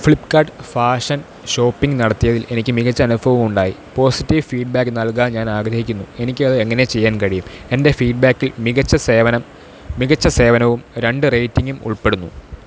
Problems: constant background noise